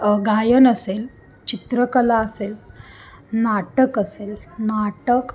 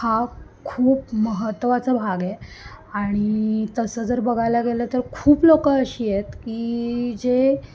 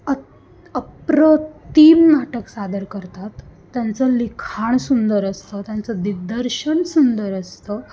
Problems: constant background noise, background conversations at intervals